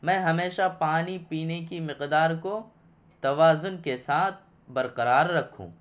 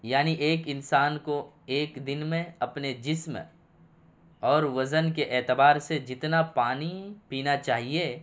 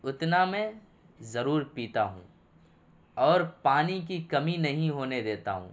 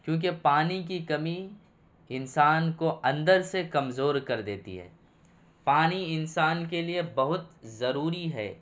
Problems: none marked